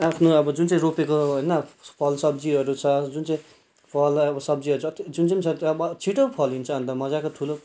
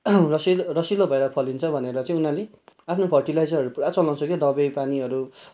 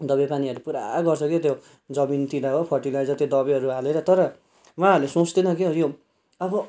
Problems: background sounds at intervals